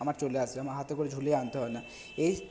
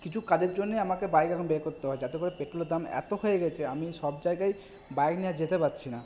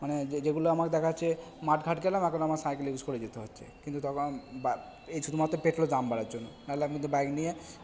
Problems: background sounds at intervals